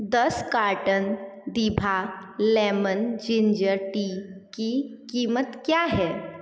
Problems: echo